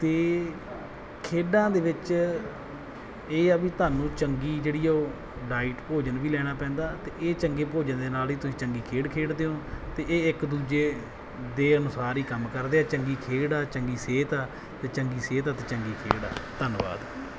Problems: background sounds at intervals